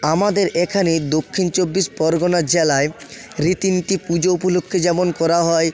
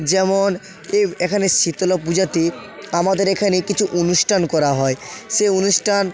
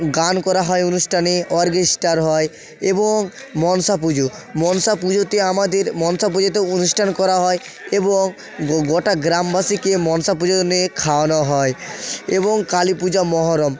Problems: continuous background conversations